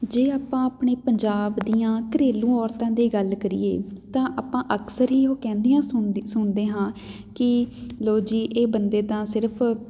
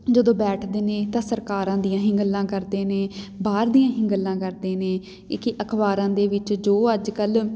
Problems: background sounds at intervals